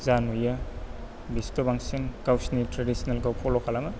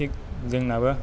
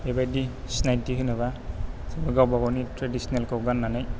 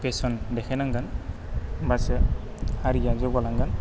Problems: low volume